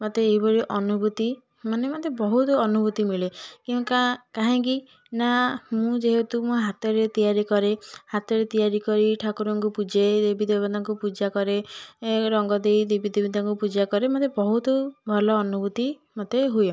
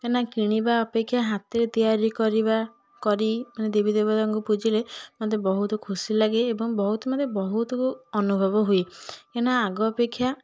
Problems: constant background noise